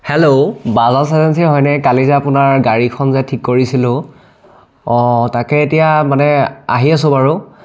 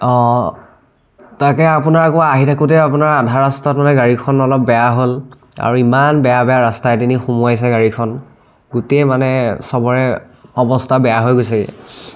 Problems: none marked